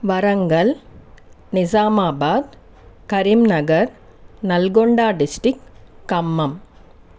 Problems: constant background noise